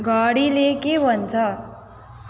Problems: echo